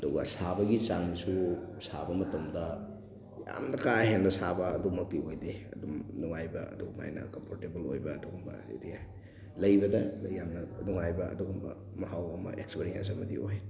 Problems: background sounds at intervals, background conversations at intervals